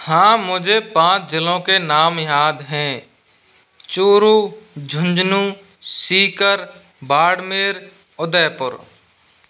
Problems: none marked